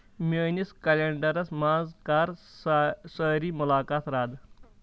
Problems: none marked